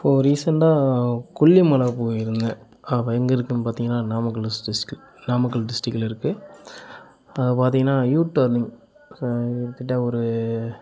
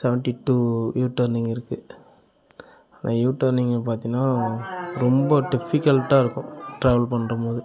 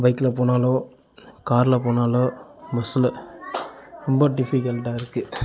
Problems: continuous background conversations